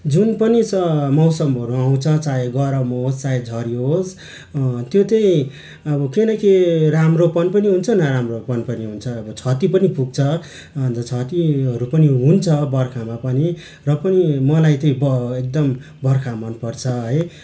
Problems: constant background noise